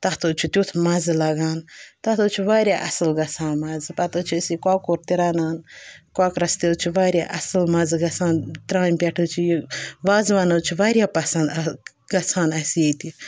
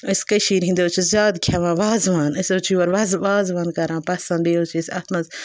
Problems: background sounds at intervals